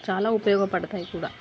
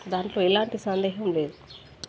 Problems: background sounds at intervals